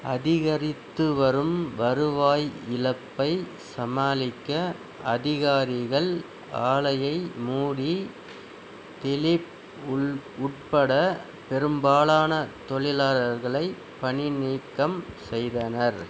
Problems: none marked